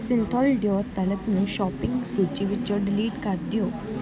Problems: constant background noise